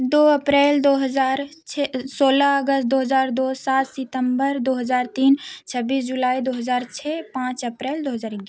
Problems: constant background noise